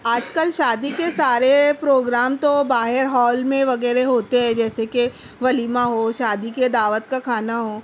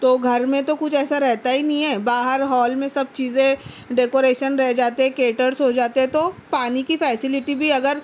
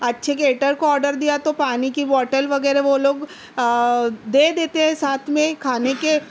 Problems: none marked